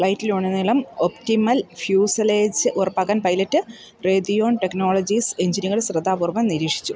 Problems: none marked